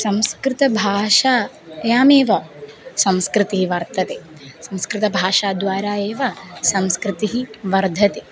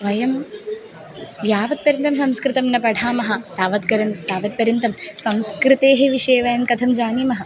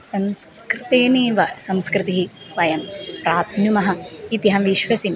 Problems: background sounds at intervals